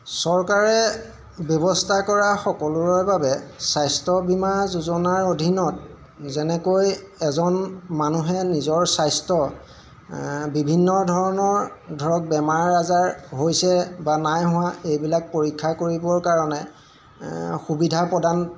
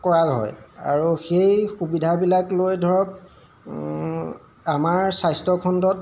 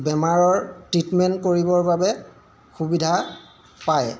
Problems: none marked